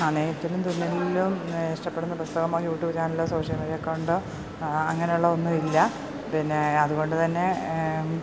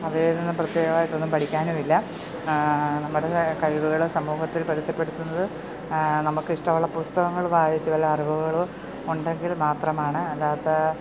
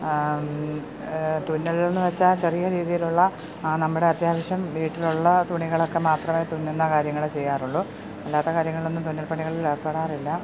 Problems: background sounds at intervals